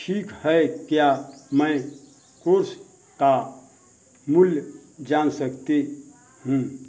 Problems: none marked